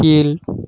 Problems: none marked